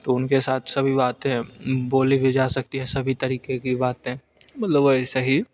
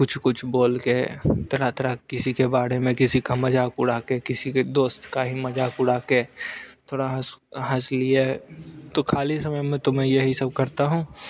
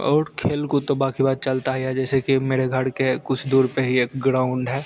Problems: none marked